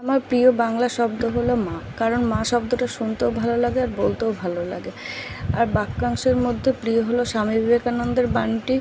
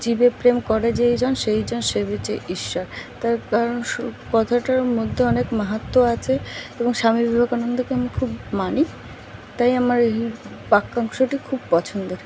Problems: constant background noise